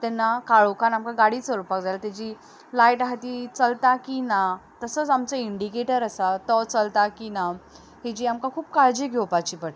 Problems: background sounds at intervals, background conversations at intervals